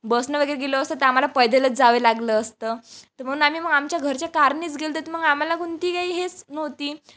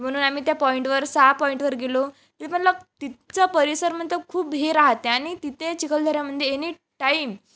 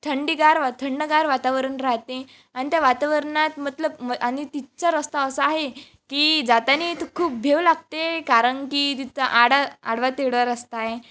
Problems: background sounds at intervals